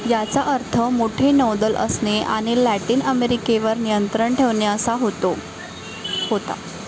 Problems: constant background noise, continuous background conversations